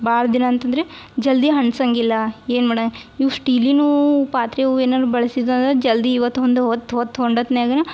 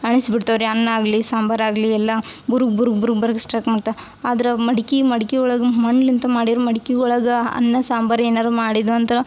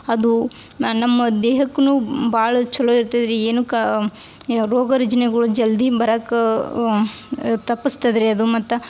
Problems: none marked